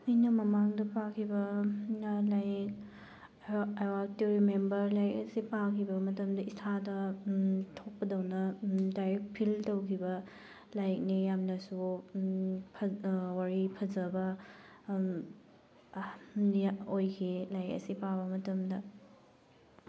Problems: background sounds at intervals